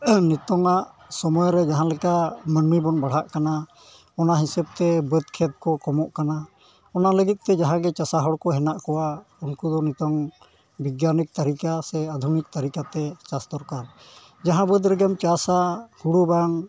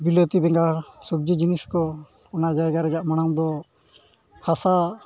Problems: background sounds at intervals